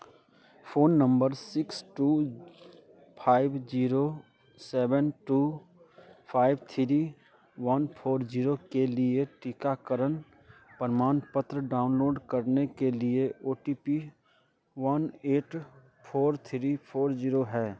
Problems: background sounds at intervals